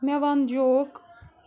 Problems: constant background noise